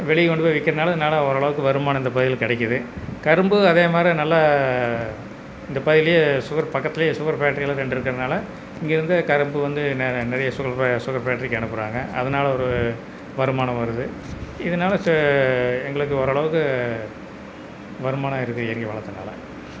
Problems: background sounds at intervals